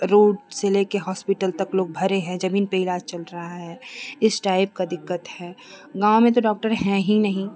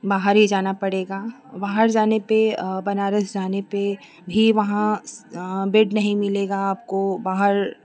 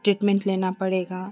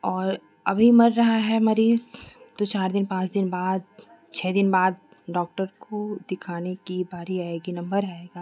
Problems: constant background noise